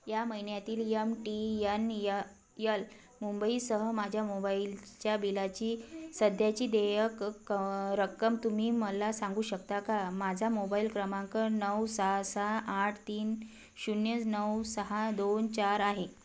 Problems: none marked